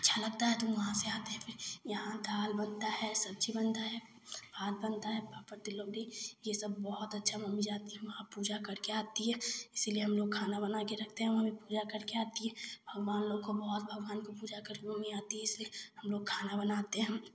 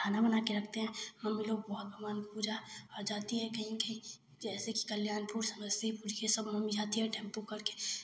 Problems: none marked